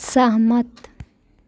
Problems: none marked